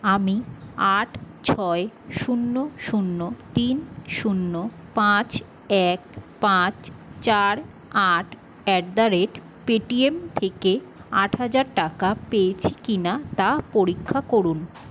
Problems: constant background noise